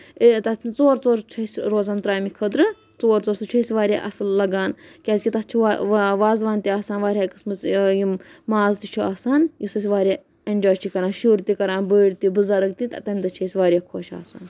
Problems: none marked